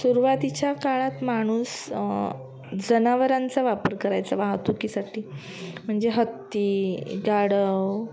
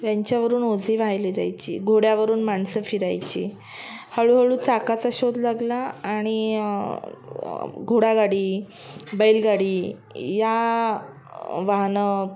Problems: background sounds at intervals